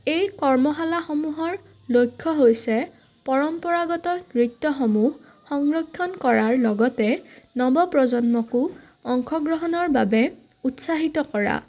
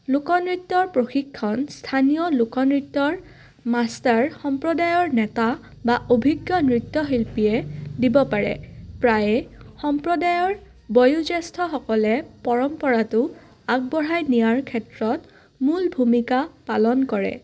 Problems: none marked